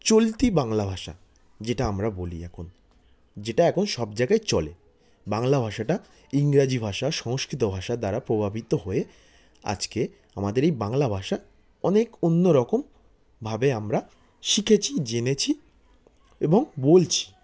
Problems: constant background noise, background conversations at intervals